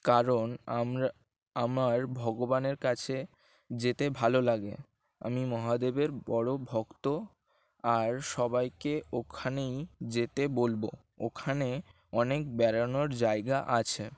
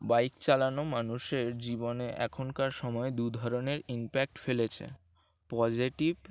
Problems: constant background noise